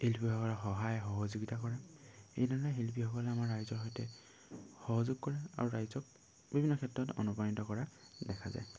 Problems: constant background noise